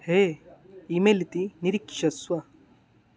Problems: none marked